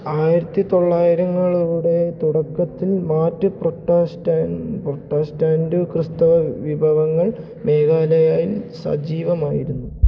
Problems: low volume